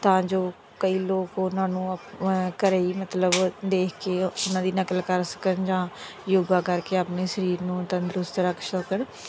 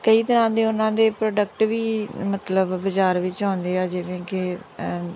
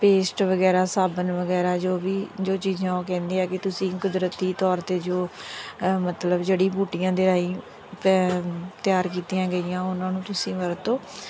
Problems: constant background noise